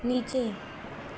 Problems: constant background noise